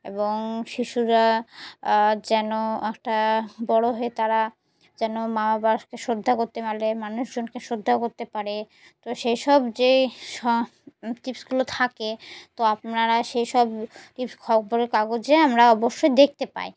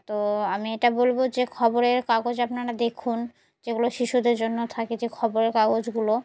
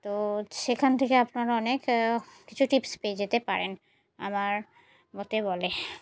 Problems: background sounds at intervals